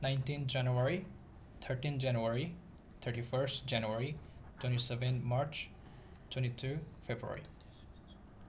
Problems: constant background noise